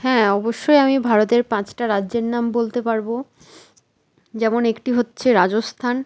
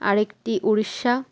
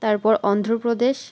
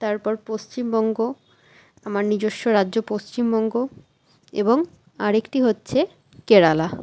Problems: constant background noise